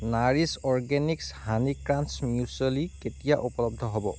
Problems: constant background noise